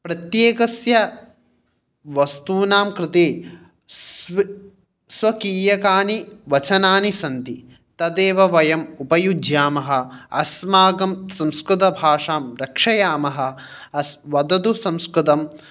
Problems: none marked